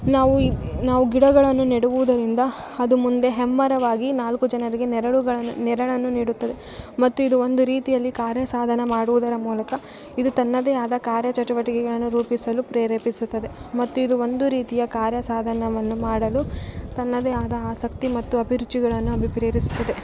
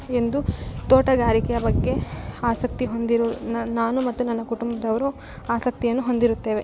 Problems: background sounds at intervals